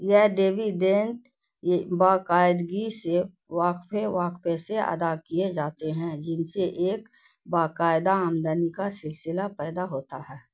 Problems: none marked